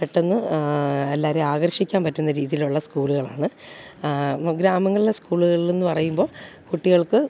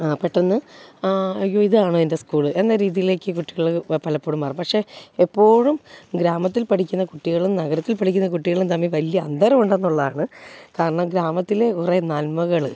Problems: background sounds at intervals